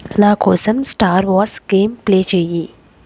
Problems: constant background noise